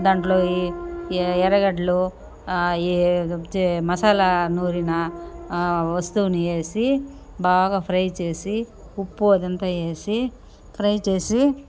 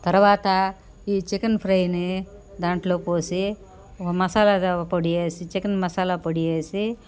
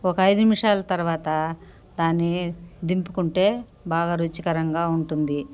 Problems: background sounds at intervals